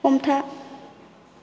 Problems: constant background noise